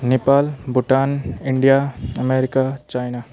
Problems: none marked